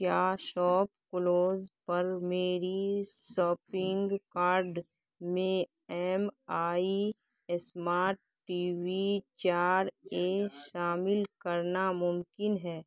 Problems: constant background noise